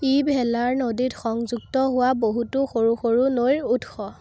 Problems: constant background noise